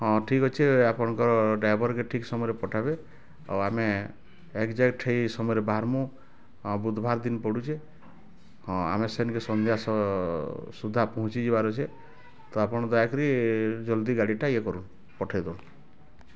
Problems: constant background noise, continuous background conversations